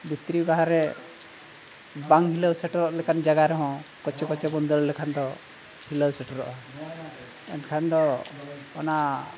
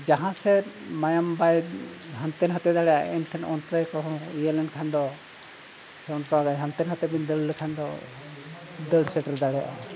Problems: constant background noise